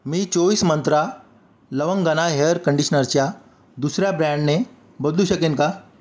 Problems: none marked